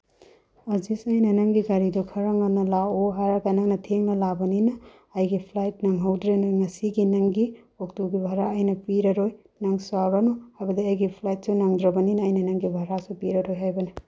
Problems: none marked